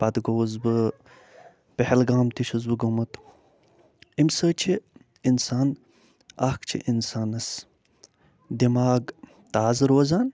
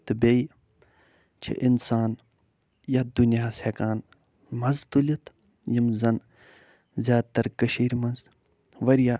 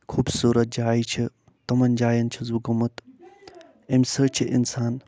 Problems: none marked